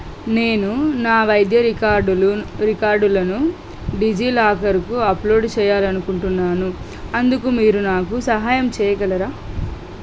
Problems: constant background noise